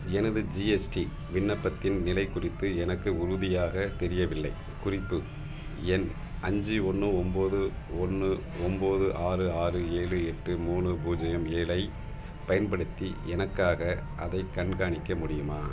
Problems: none marked